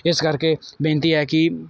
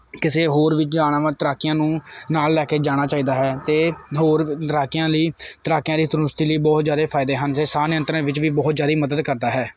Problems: none marked